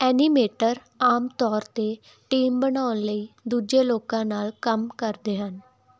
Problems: background sounds at intervals